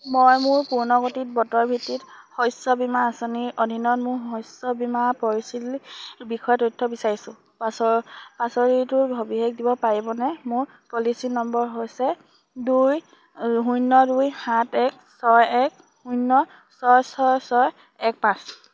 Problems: constant background noise